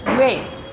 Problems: constant background noise